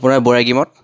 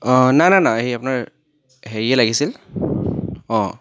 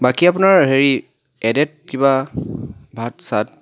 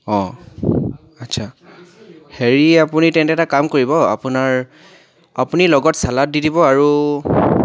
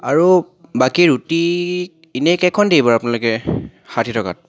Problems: background sounds at intervals, background conversations at intervals